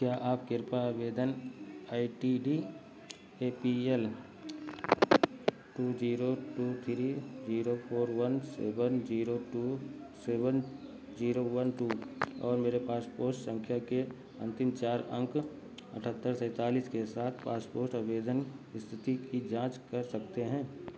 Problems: background sounds at intervals